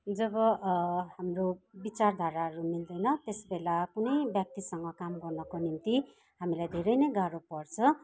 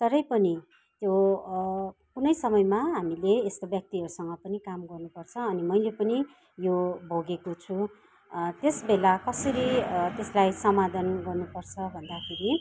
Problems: constant background noise, background conversations at intervals